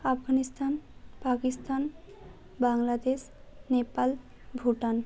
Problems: constant background noise